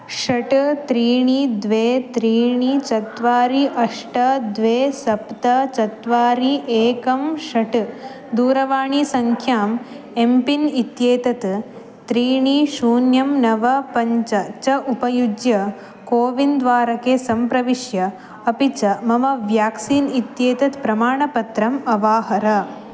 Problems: none marked